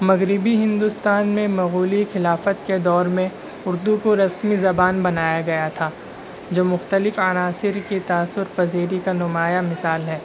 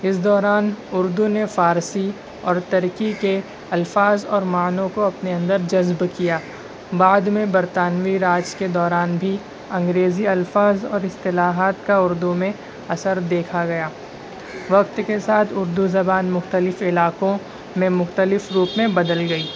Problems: constant background noise